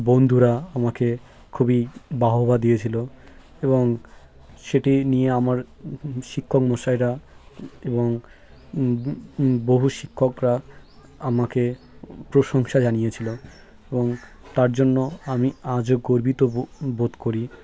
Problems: none marked